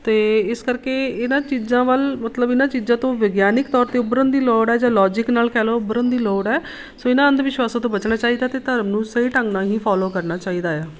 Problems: none marked